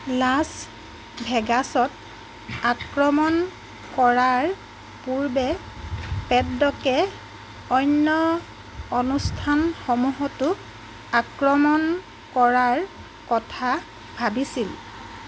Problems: constant background noise